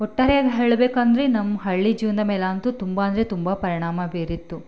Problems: none marked